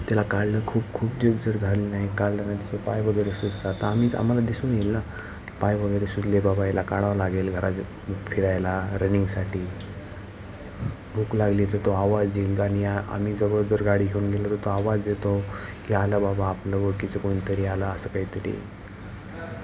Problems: constant background noise, continuous background conversations